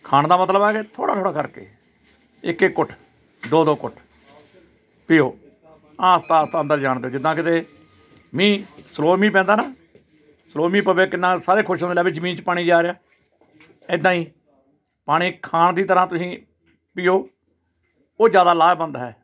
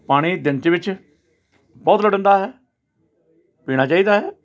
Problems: none marked